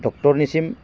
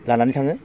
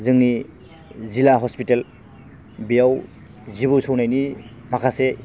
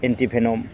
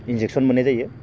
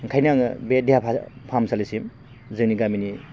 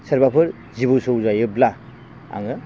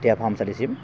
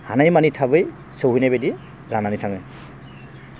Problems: none marked